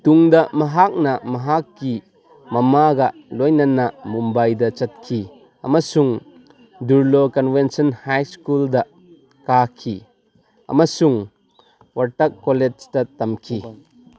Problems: background conversations at intervals